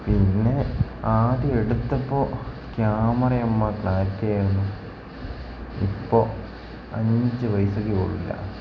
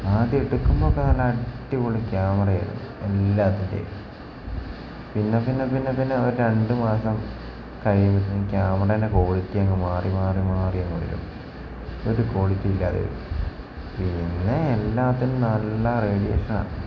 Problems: constant background noise